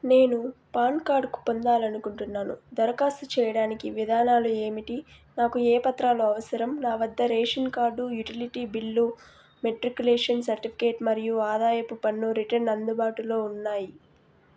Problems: background sounds at intervals